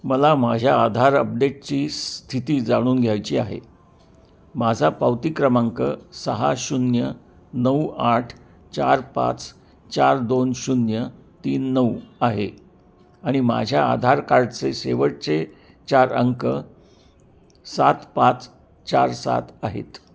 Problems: constant background noise, continuous background conversations